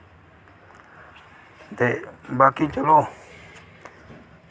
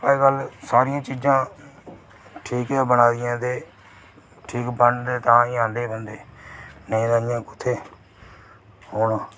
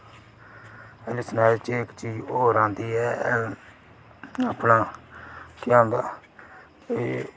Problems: none marked